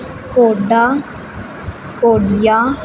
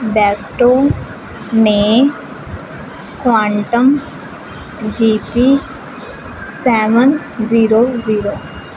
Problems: constant background noise